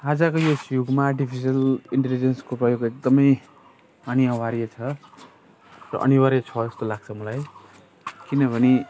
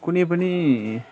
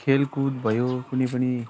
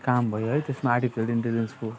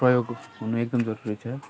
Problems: constant background noise